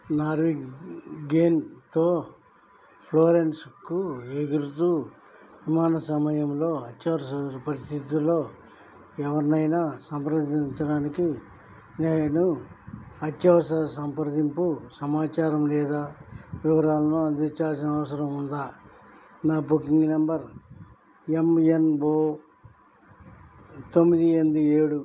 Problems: low volume